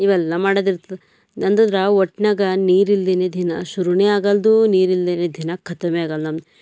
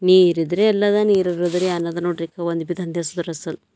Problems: none marked